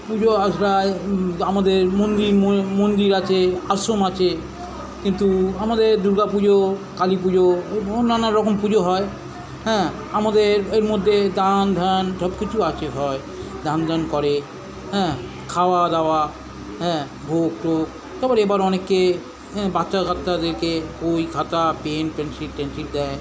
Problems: background conversations at intervals